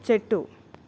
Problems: none marked